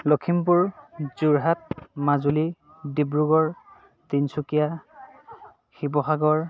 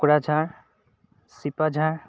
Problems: constant background noise, background conversations at intervals